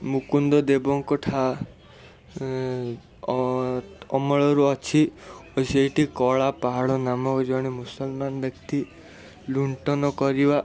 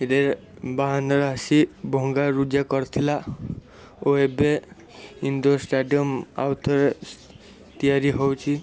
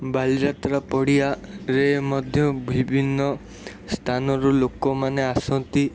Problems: constant background noise